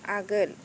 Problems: constant background noise